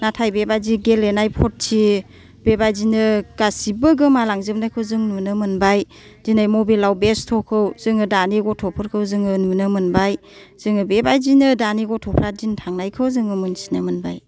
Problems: none marked